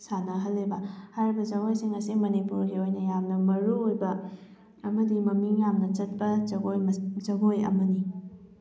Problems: background sounds at intervals